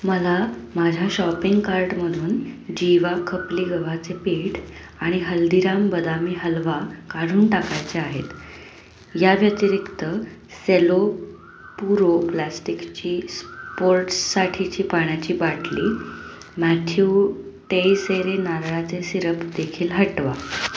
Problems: constant background noise